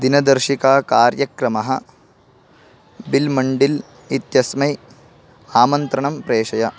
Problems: constant background noise